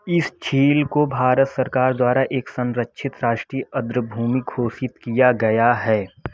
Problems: constant background noise